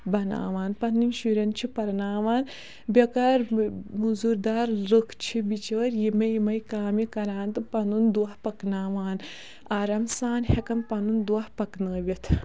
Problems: background sounds at intervals